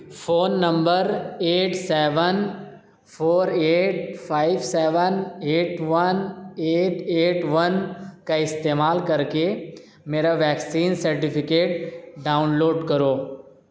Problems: background conversations at intervals